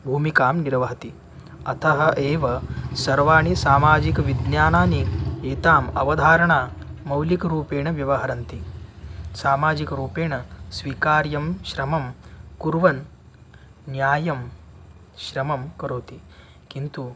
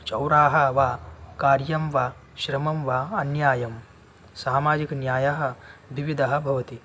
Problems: none marked